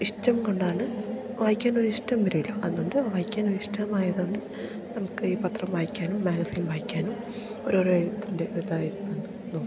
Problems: none marked